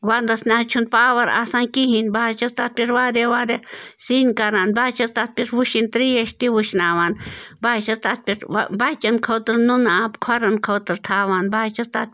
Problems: constant background noise